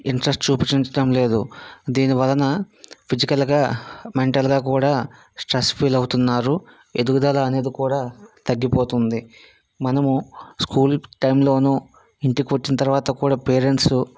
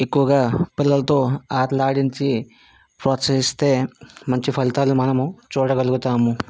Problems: background sounds at intervals